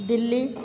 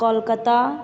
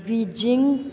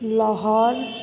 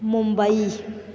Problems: constant background noise